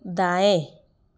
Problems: background sounds at intervals